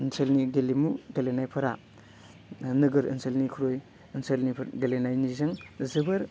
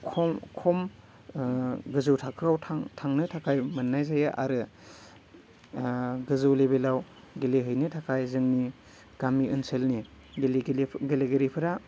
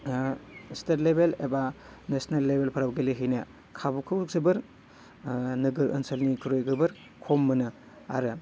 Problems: none marked